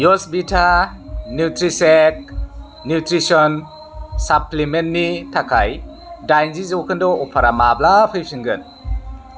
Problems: constant background noise